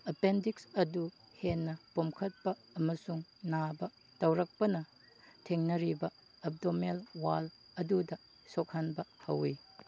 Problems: none marked